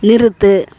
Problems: none marked